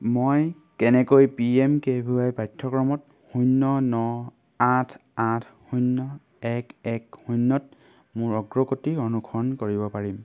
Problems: none marked